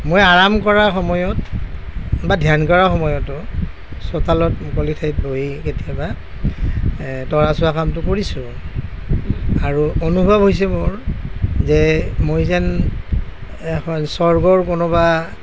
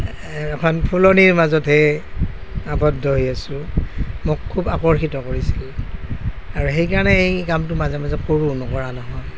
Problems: none marked